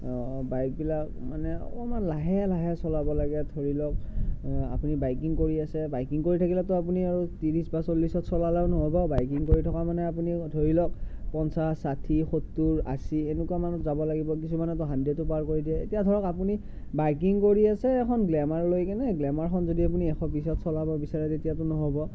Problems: none marked